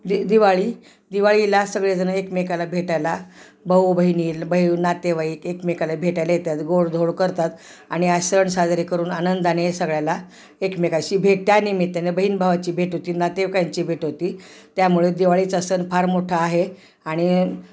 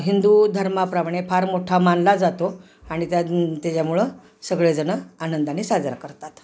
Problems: none marked